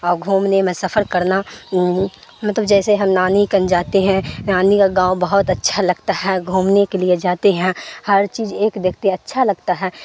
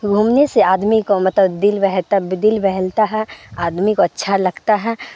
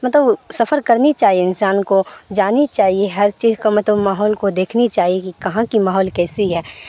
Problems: constant background noise